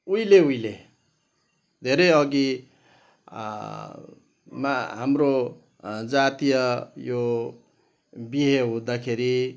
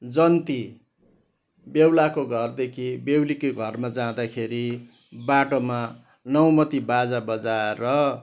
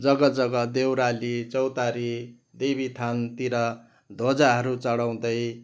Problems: none marked